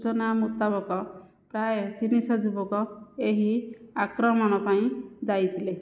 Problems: none marked